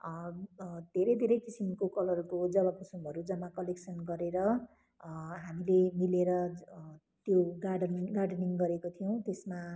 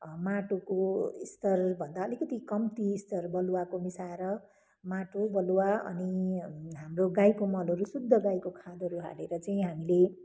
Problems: constant background noise